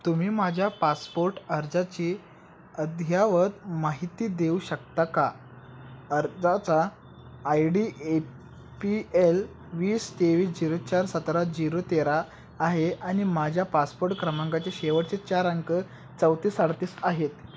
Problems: constant background noise